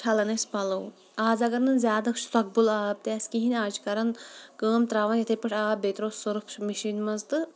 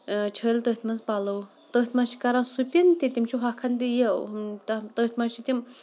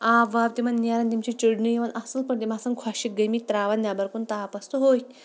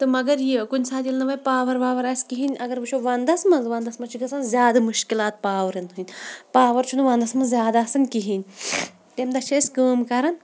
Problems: background sounds at intervals